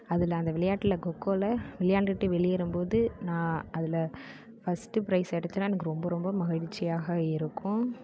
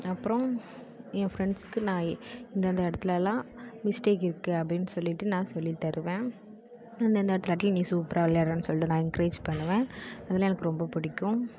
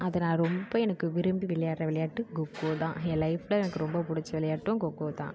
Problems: constant background noise